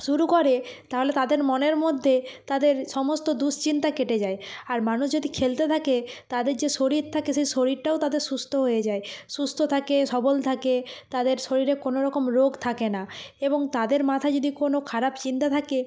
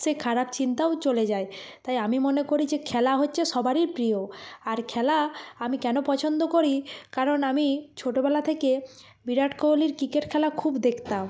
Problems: constant background noise, background conversations at intervals